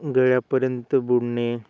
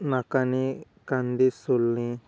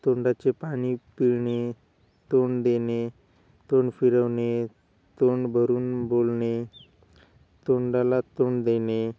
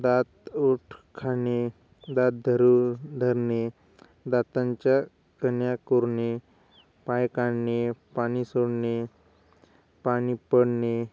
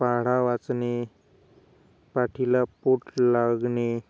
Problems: none marked